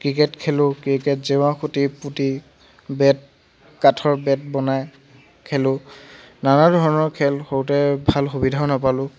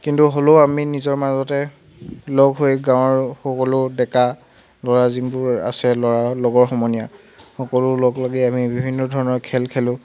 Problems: none marked